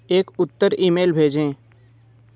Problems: background sounds at intervals